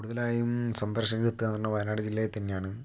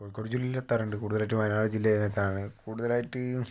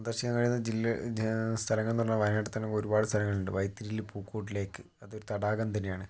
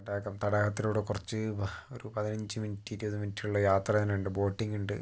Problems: low volume